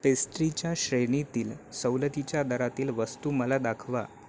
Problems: constant background noise, continuous background conversations